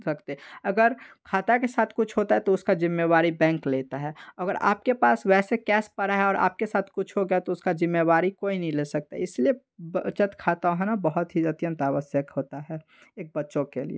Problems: background sounds at intervals